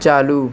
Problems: constant background noise